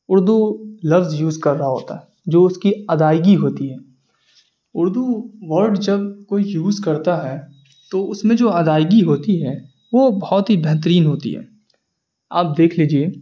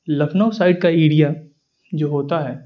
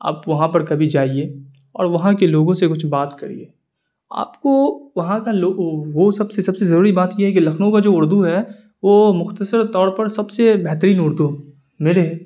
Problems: none marked